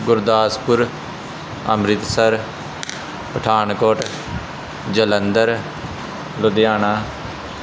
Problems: constant background noise